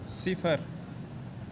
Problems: constant background noise